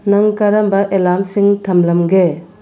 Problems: none marked